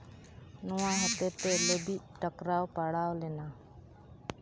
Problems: background sounds at intervals